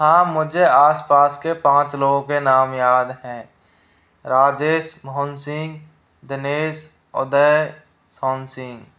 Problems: constant background noise, background conversations at intervals